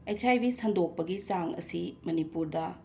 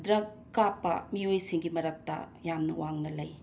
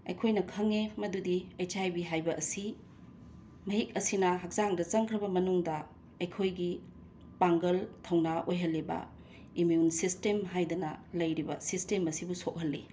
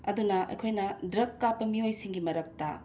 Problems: constant background noise